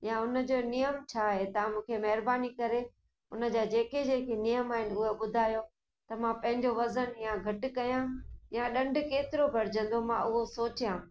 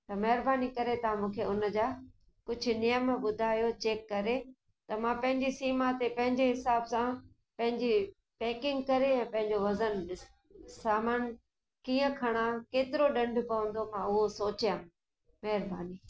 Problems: echo